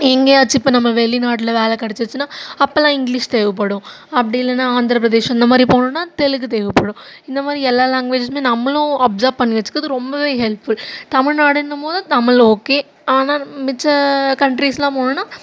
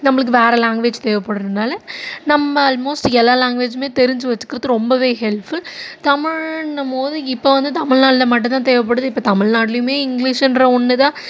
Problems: constant background noise